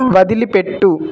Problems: constant background noise